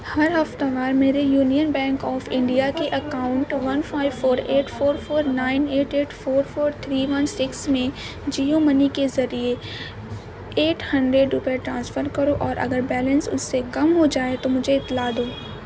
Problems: constant background noise